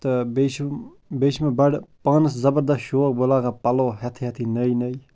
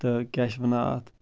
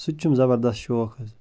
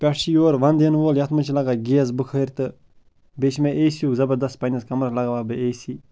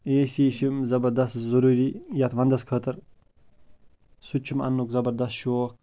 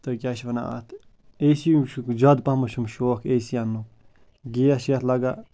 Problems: constant background noise